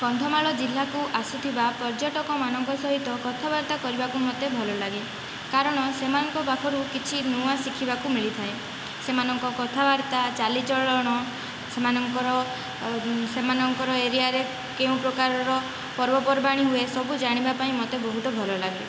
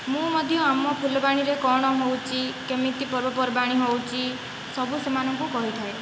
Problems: constant background noise, background conversations at intervals